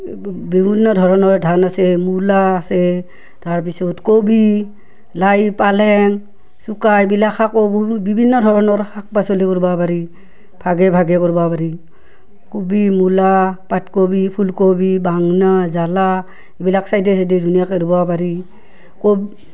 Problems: none marked